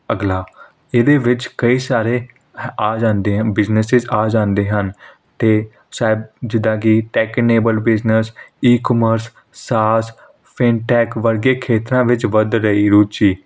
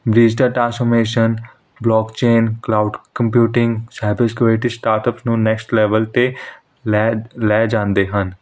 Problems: none marked